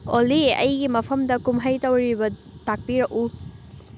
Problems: constant background noise